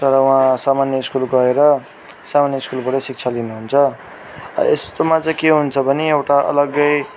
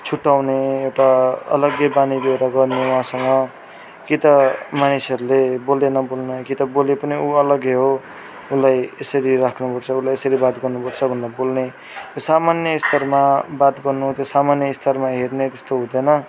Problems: continuous background conversations